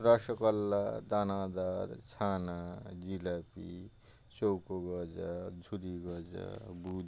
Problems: constant background noise